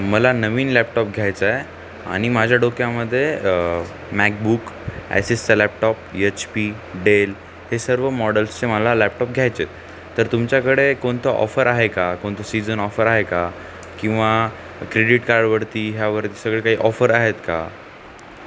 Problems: none marked